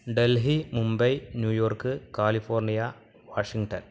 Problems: constant background noise